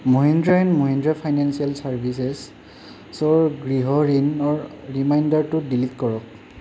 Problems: constant background noise